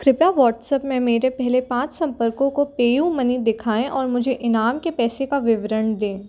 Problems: background sounds at intervals